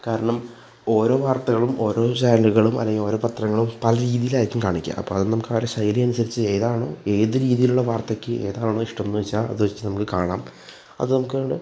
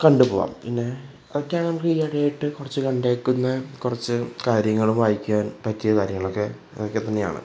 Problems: none marked